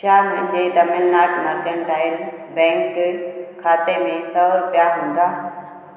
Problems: constant background noise, echo